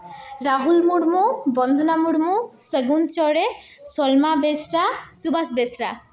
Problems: echo